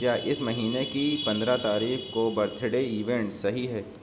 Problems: background sounds at intervals